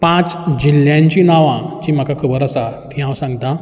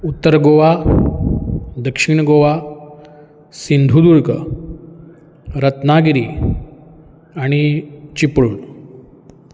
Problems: background sounds at intervals